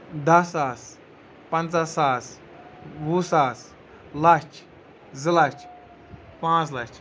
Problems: background sounds at intervals